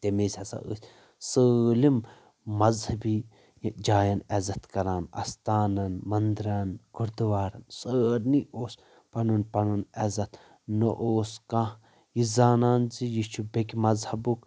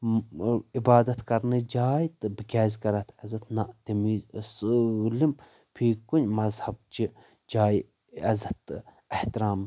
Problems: constant background noise